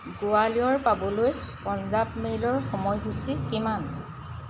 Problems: constant background noise